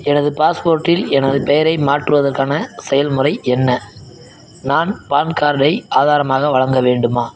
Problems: none marked